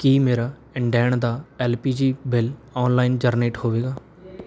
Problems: background sounds at intervals